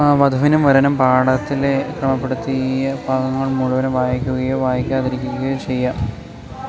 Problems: constant background noise